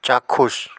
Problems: constant background noise